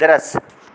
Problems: background sounds at intervals